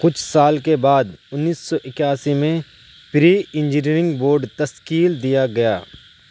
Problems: none marked